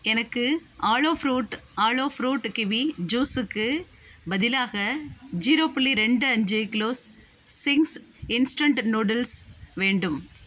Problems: background sounds at intervals